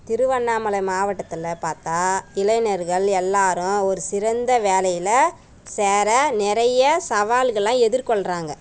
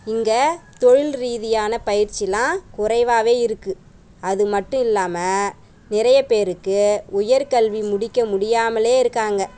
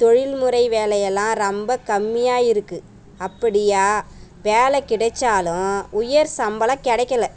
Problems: background sounds at intervals